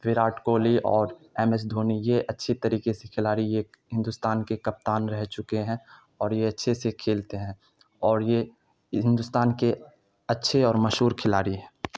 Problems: background sounds at intervals